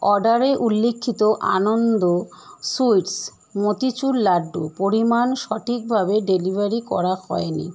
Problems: constant background noise